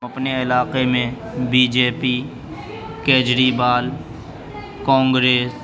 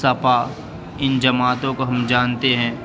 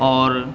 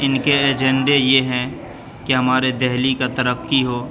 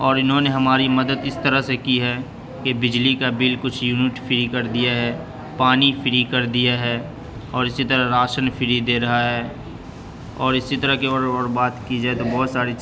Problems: constant background noise, continuous background conversations